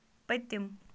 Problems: none marked